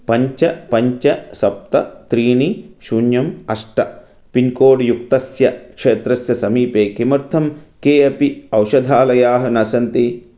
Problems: none marked